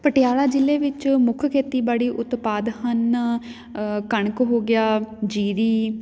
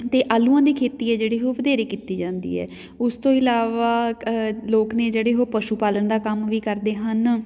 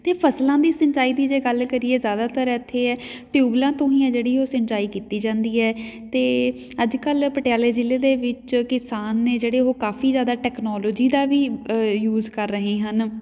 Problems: background sounds at intervals, background conversations at intervals